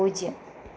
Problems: constant background noise